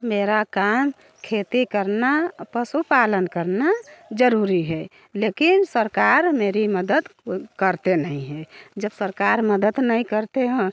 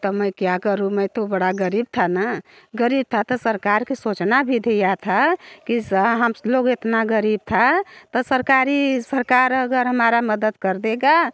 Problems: background sounds at intervals